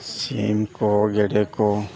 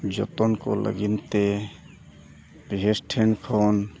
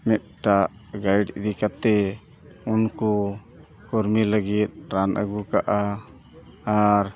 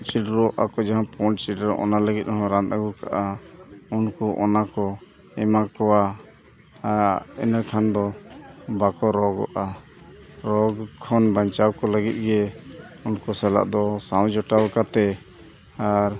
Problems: continuous background conversations